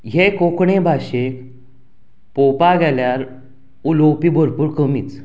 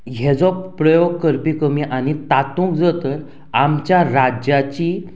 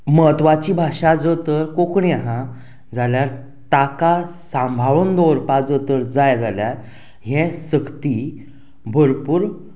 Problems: background sounds at intervals